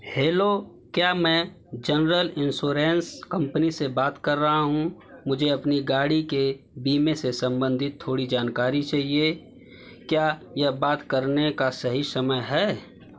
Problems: constant background noise